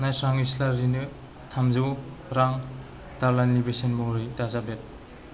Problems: low volume